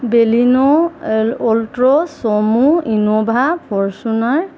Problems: constant background noise